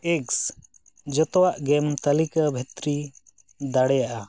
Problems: none marked